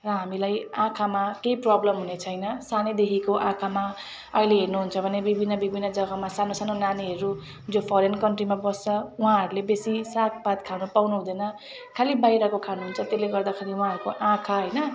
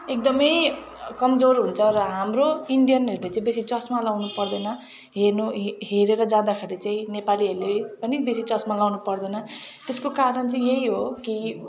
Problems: background sounds at intervals